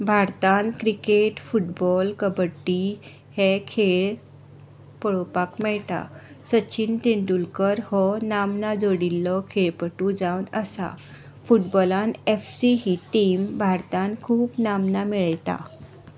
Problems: background sounds at intervals